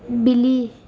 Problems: constant background noise, low volume